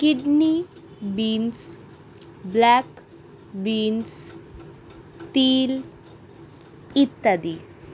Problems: none marked